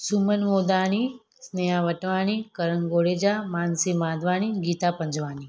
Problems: none marked